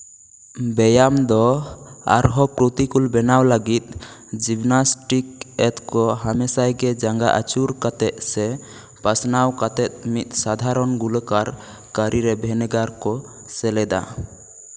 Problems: echo